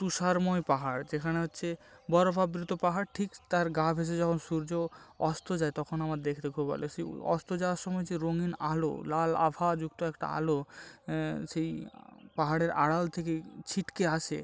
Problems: background sounds at intervals